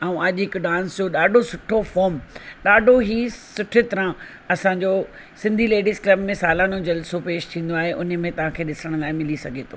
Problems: constant background noise